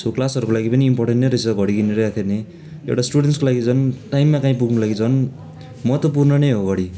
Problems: constant background noise